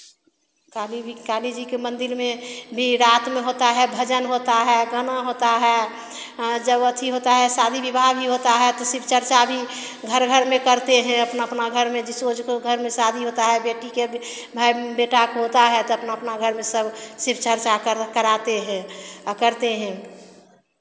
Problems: constant background noise